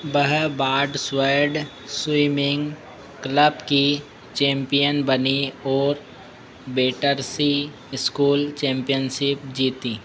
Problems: constant background noise